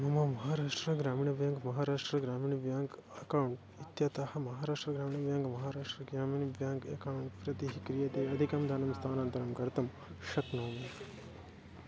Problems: none marked